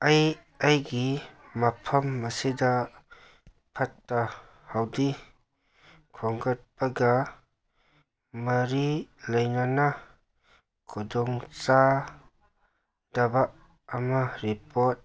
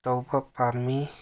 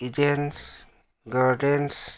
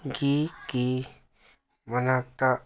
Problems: none marked